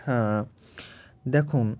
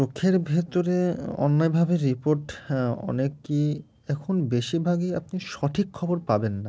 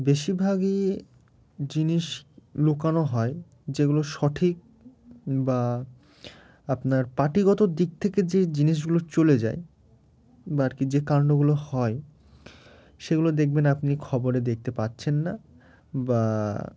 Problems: background sounds at intervals